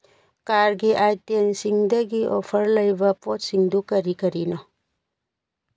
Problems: none marked